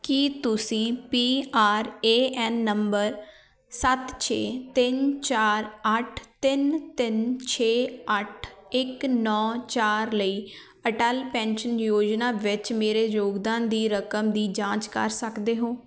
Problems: none marked